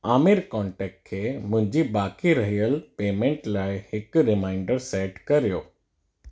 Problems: none marked